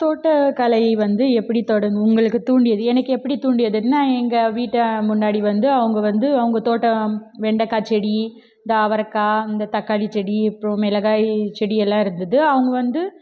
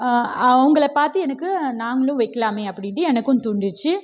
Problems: none marked